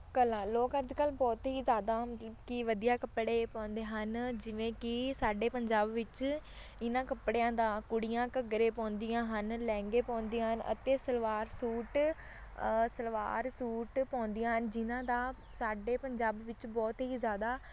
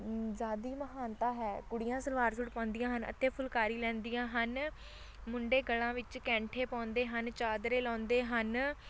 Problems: constant background noise